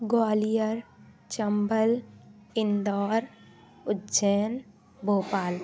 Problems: constant background noise